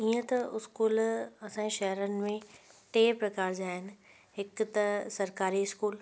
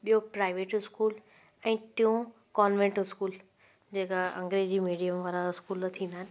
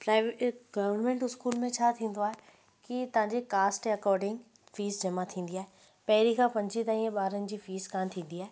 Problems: constant background noise